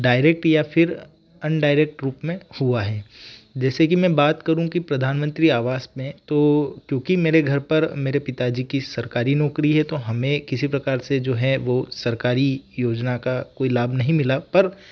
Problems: background sounds at intervals